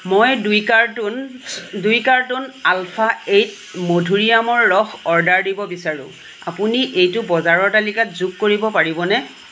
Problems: constant background noise, low volume